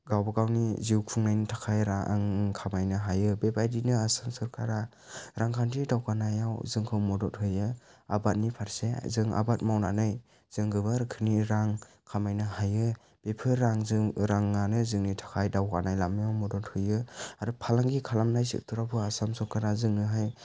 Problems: low volume